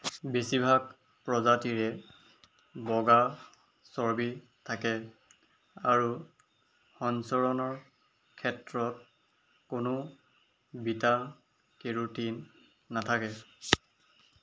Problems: background sounds at intervals